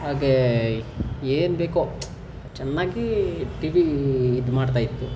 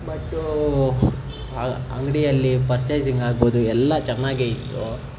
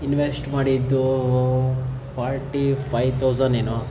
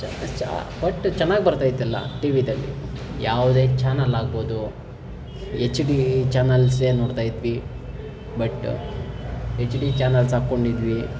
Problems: background sounds at intervals